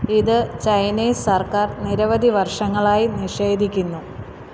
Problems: background sounds at intervals